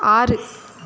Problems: constant background noise